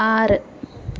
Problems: constant background noise